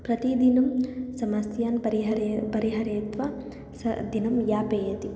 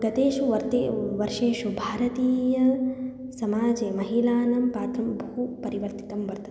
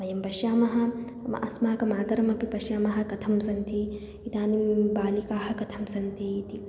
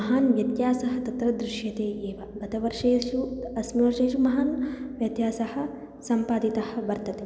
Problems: none marked